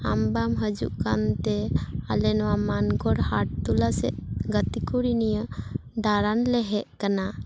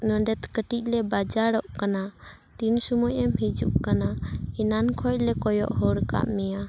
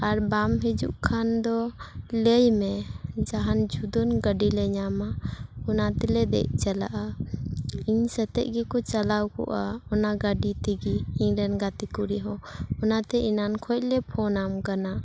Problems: background conversations at intervals